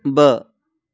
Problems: background sounds at intervals